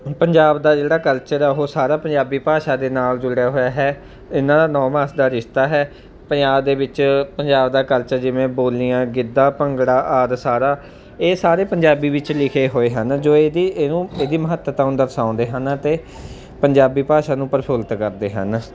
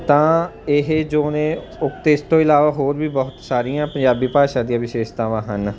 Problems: none marked